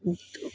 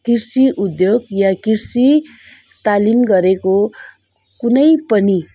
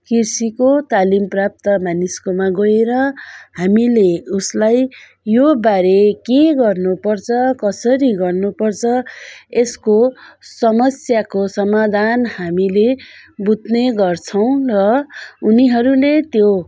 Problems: background sounds at intervals